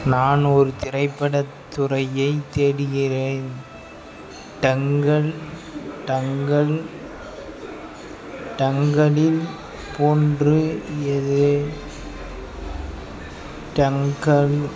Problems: background sounds at intervals, background conversations at intervals